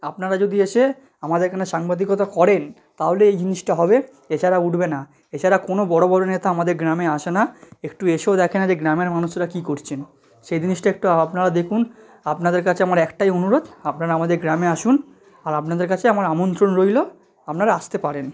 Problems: none marked